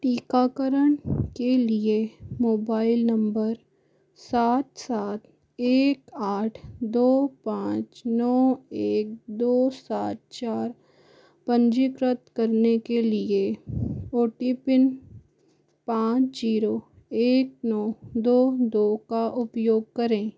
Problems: none marked